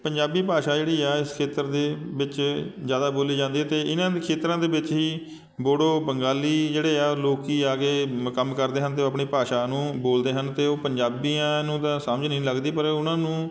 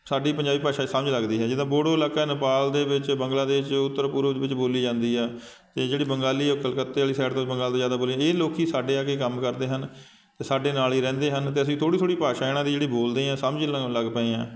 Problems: none marked